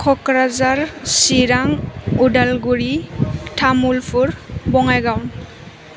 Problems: constant background noise